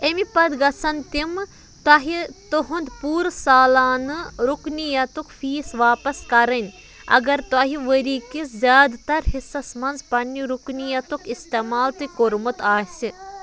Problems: constant background noise